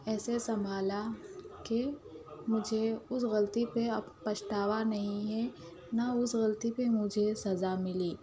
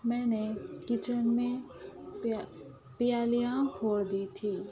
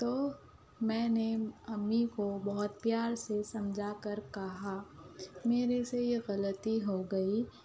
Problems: background sounds at intervals, low volume